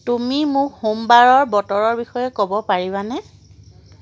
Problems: constant background noise